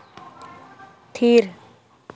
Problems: constant background noise